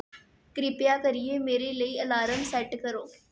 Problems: none marked